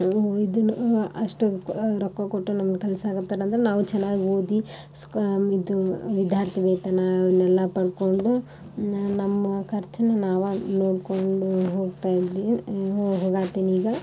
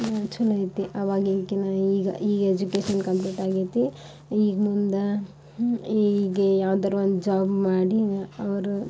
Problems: none marked